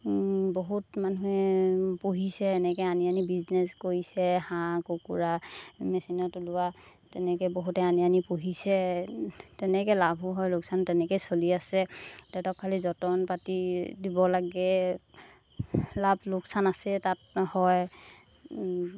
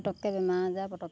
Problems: constant background noise